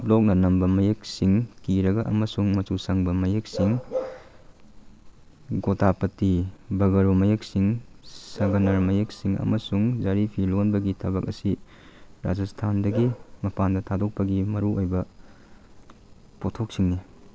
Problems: none marked